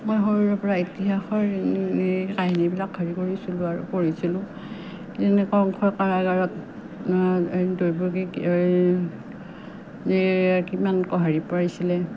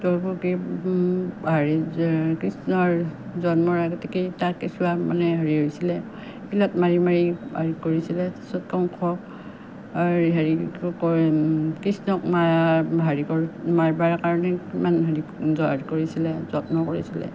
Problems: none marked